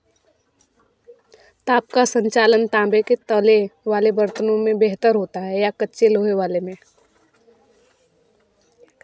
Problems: constant background noise